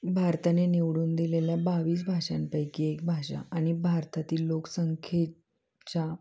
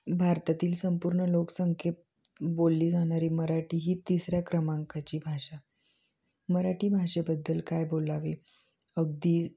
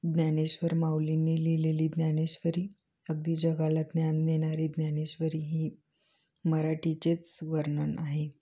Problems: none marked